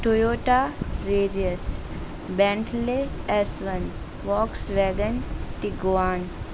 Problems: constant background noise